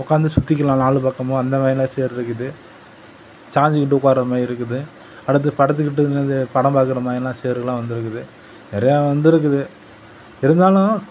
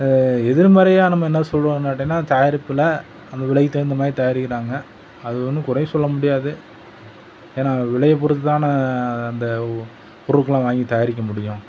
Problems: constant background noise